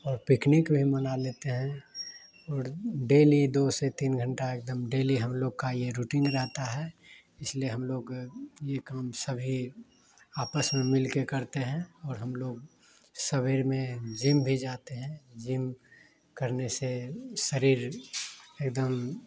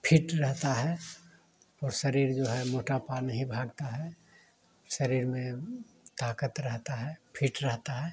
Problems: background sounds at intervals